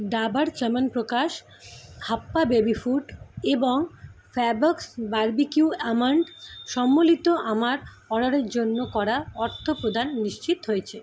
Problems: constant background noise